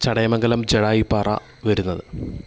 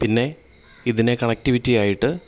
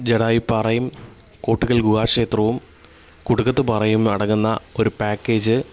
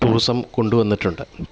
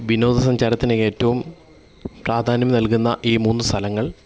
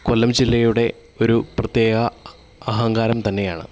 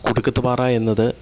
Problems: none marked